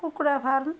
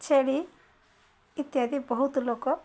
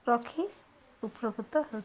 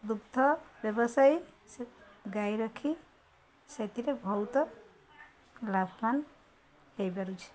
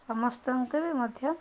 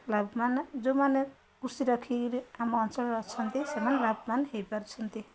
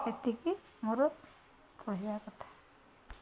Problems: constant background noise, continuous background conversations